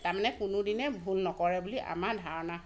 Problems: constant background noise